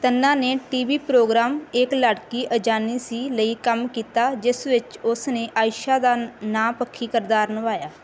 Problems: background sounds at intervals